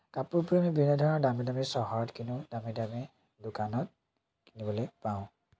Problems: constant background noise